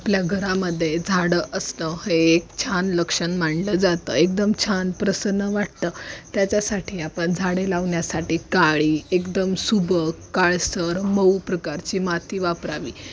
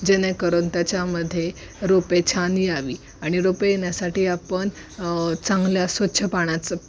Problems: none marked